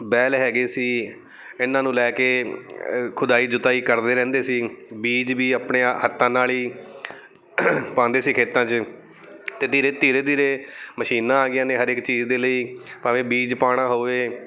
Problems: none marked